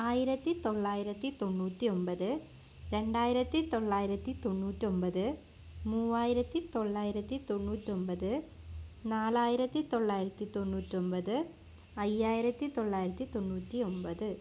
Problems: none marked